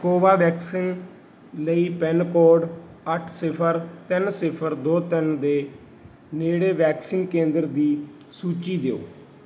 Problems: none marked